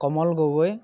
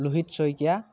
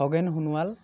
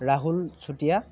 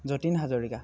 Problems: none marked